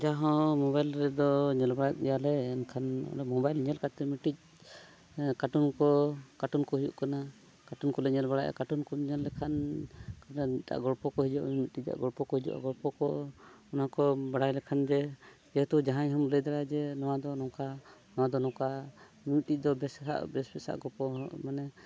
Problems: none marked